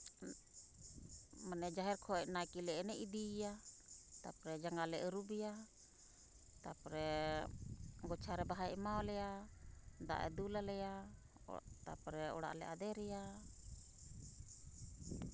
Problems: constant background noise